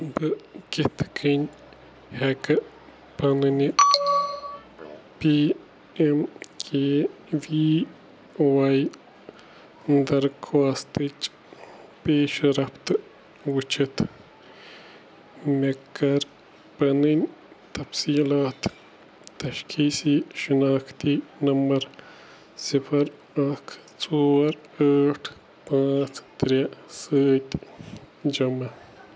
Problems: none marked